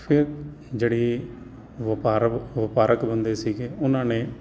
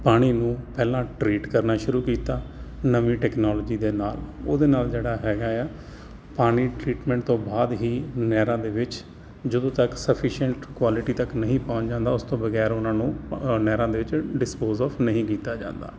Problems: constant background noise